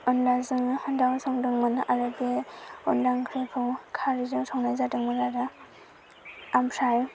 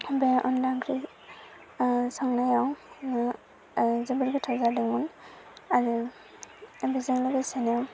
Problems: constant background noise